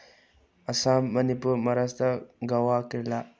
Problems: low volume